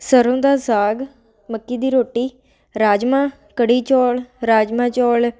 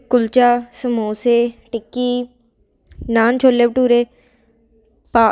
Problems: constant background noise